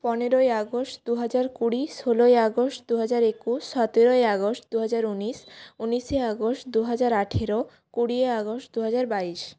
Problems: none marked